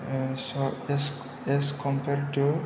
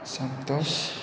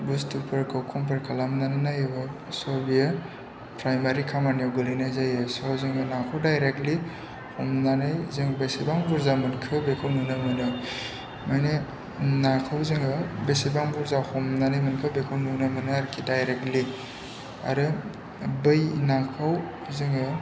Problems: constant background noise